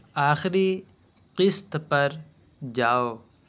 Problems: constant background noise